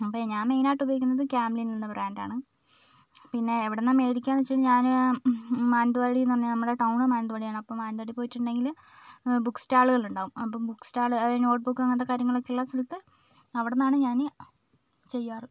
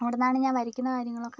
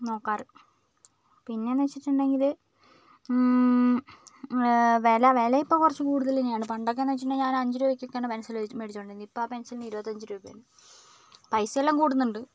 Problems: background conversations at intervals